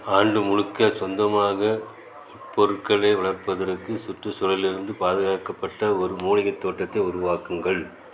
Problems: none marked